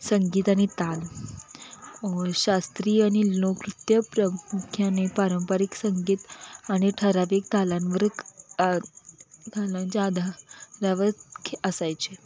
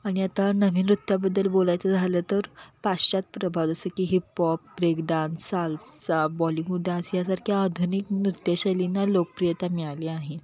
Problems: none marked